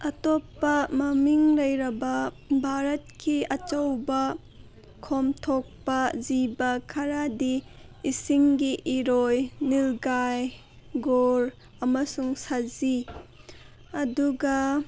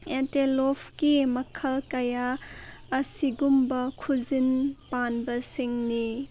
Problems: none marked